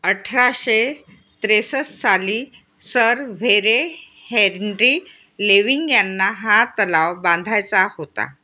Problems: none marked